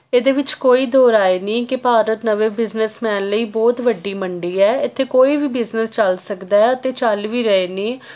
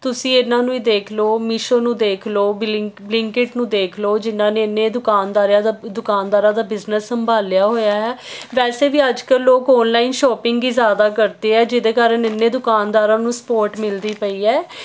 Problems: none marked